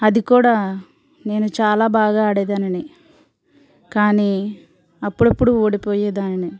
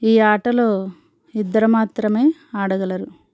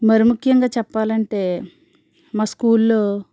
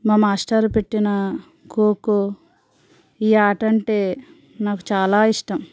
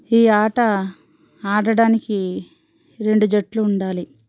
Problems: background sounds at intervals